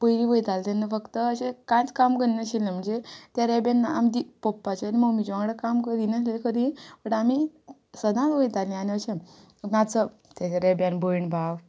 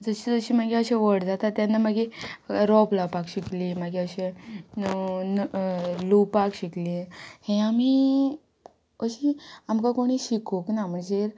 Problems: background conversations at intervals